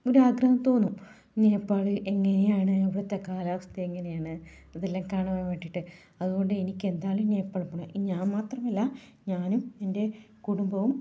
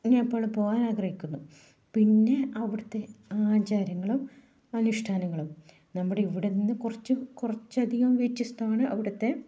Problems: low volume